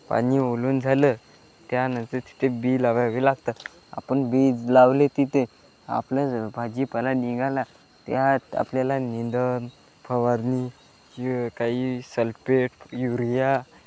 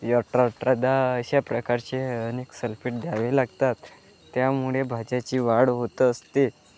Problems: background sounds at intervals